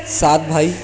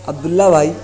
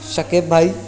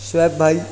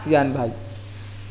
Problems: constant background noise, continuous background conversations